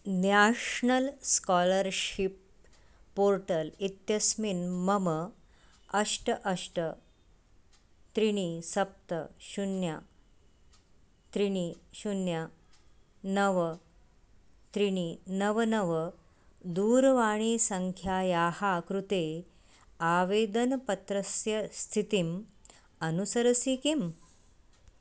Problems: none marked